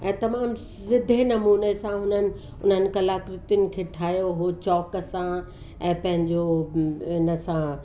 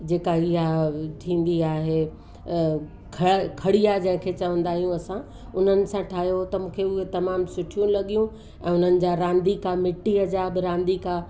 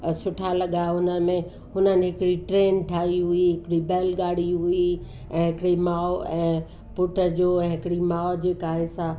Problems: constant background noise